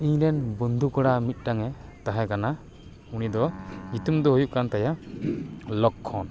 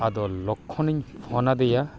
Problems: background sounds at intervals